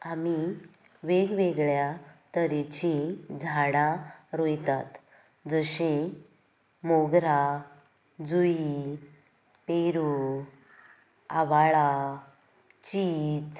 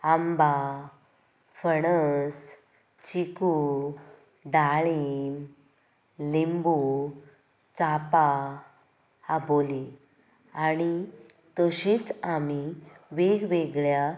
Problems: background sounds at intervals